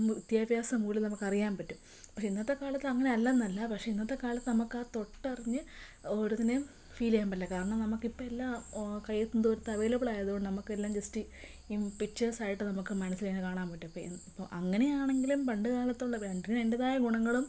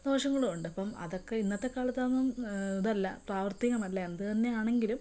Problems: low volume